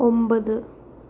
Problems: constant background noise